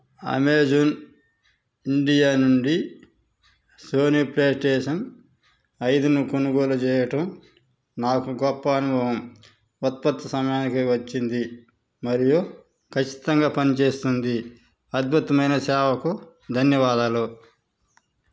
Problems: none marked